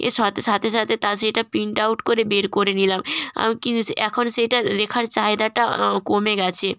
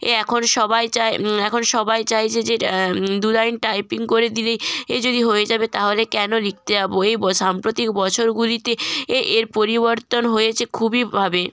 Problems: none marked